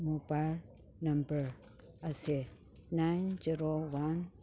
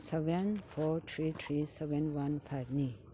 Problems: background sounds at intervals